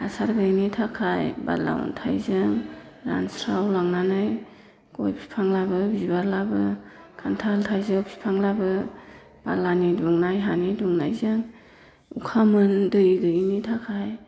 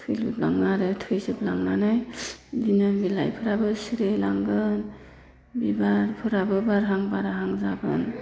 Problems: constant background noise